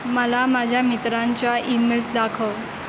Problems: constant background noise